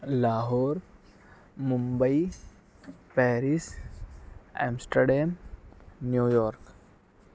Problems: none marked